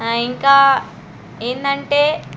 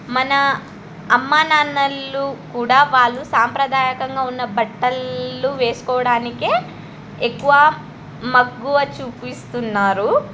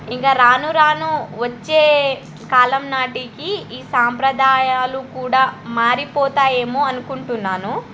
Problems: none marked